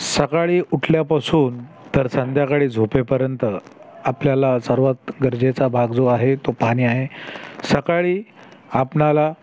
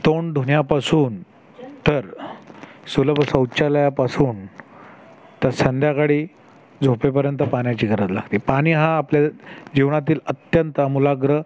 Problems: constant background noise, background conversations at intervals